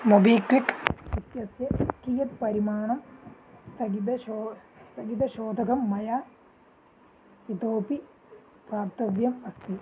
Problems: background sounds at intervals, low volume